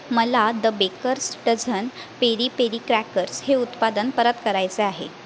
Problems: constant background noise